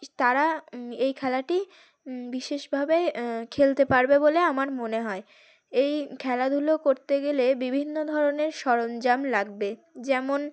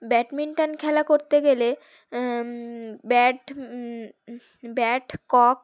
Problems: none marked